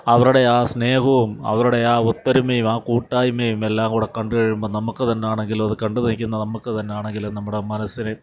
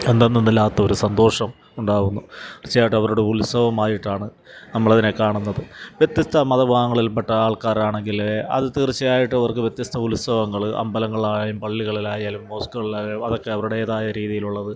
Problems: background sounds at intervals